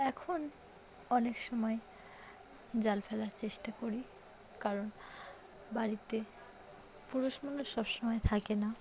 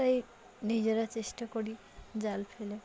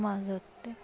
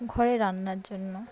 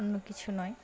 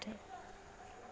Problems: none marked